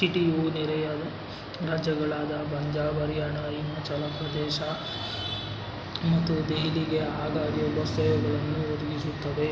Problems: constant background noise